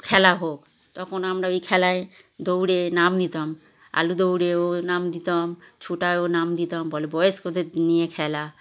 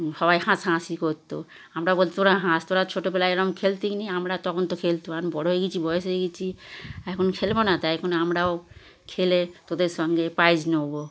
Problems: constant background noise, continuous background conversations